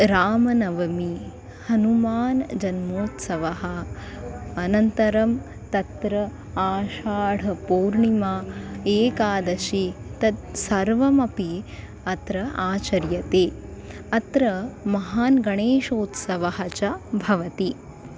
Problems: constant background noise, continuous background conversations